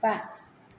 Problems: none marked